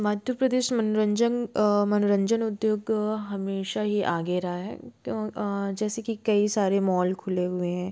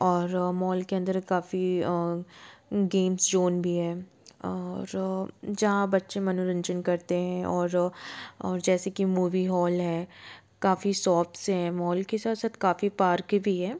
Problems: background sounds at intervals